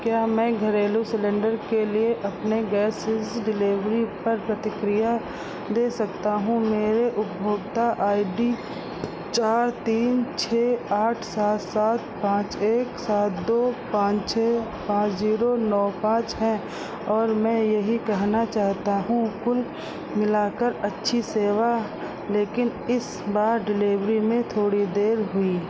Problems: constant background noise